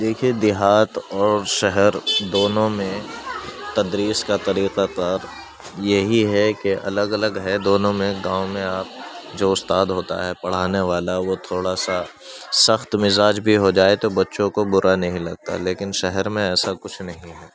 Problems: background sounds at intervals, continuous background conversations